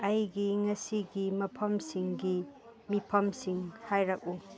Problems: background sounds at intervals, background conversations at intervals